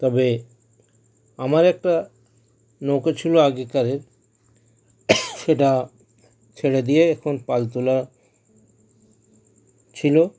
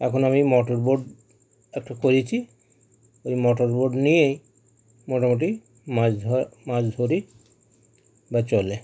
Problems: none marked